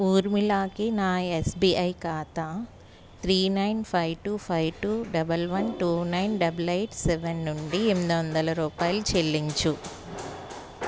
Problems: none marked